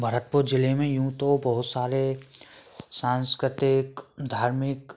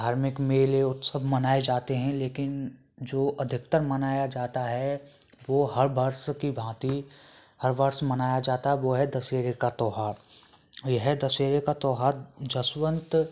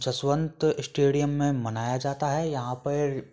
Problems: none marked